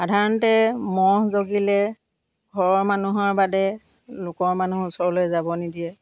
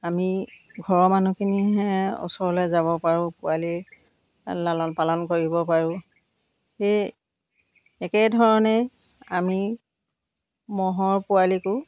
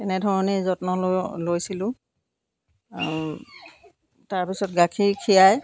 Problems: none marked